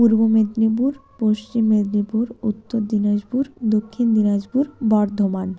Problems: constant background noise, background conversations at intervals